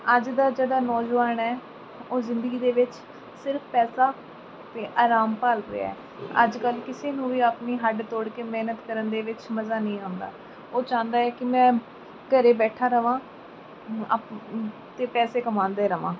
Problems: background sounds at intervals